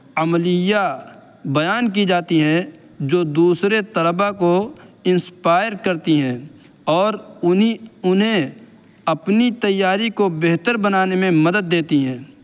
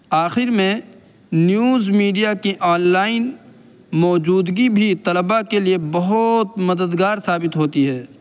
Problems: constant background noise